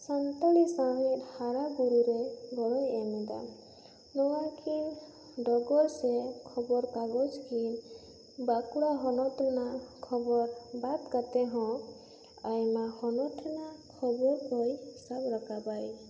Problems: constant background noise